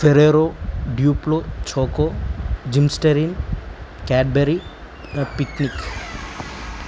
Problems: none marked